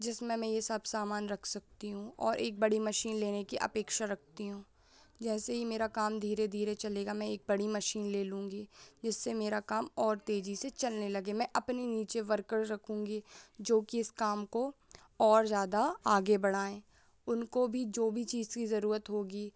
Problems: constant background noise